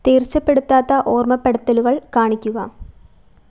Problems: none marked